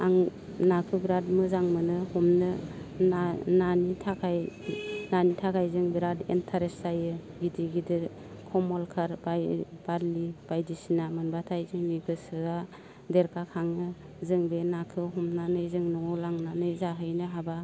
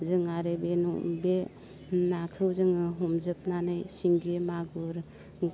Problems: constant background noise